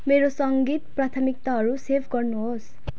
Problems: background sounds at intervals